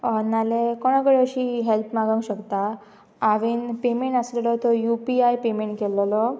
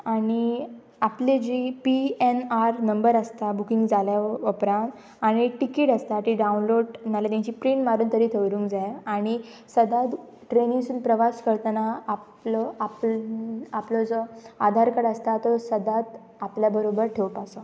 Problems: none marked